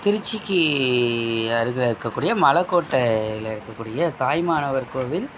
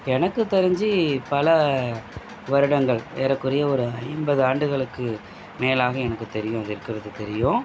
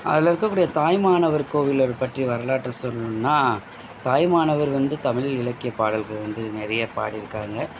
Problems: constant background noise